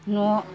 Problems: none marked